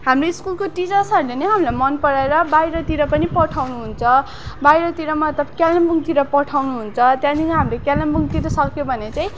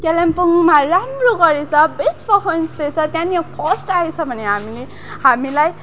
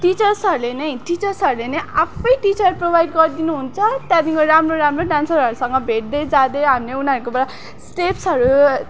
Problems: background sounds at intervals, background conversations at intervals